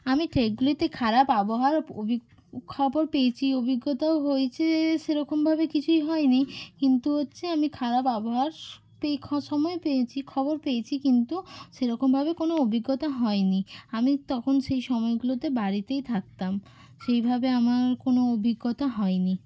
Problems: none marked